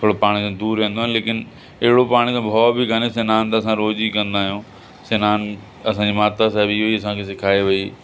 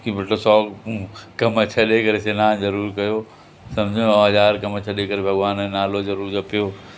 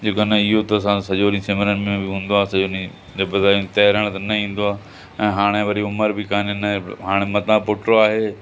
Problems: constant background noise, echo